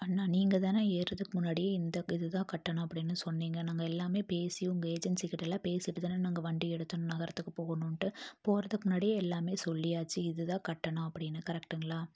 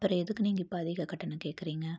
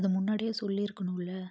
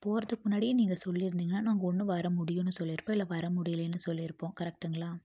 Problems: none marked